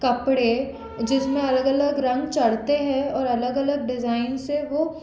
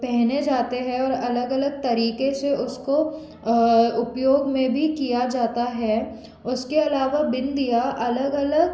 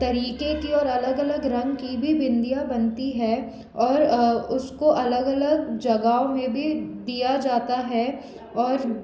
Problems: constant background noise